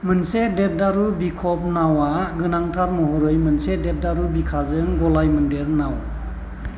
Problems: none marked